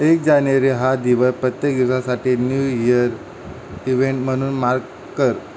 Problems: constant background noise